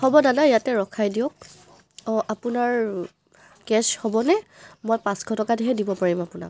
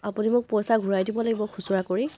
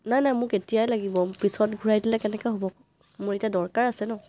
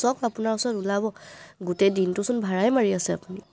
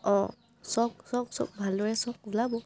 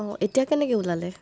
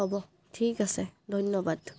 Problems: constant background noise